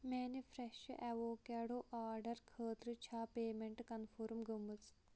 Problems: low volume